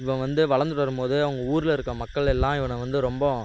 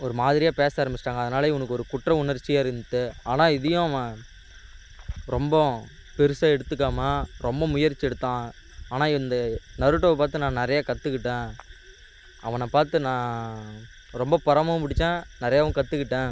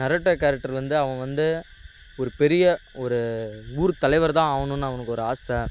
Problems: constant background noise